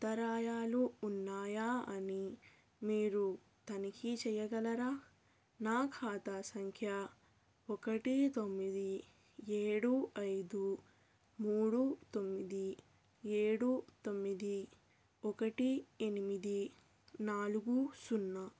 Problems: low volume